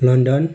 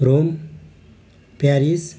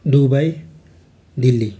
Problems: background sounds at intervals